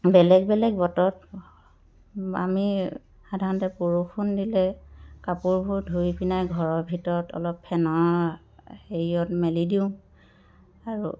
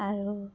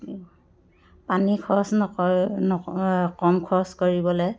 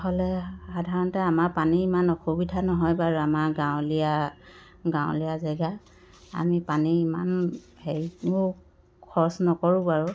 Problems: constant background noise